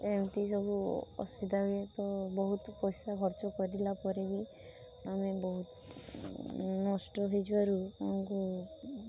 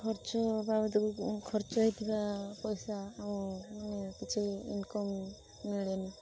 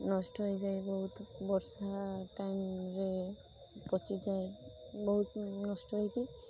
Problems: constant background noise